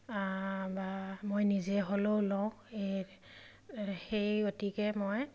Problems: background sounds at intervals